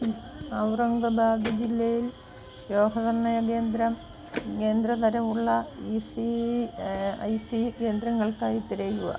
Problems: constant background noise, low volume